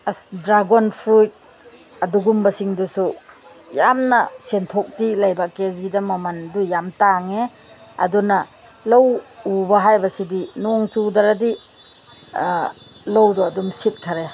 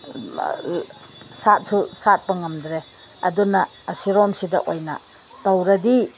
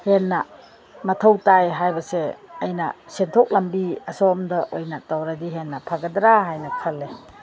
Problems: constant background noise